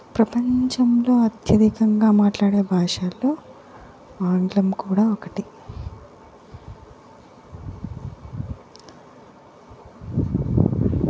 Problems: background sounds at intervals